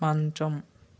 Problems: constant background noise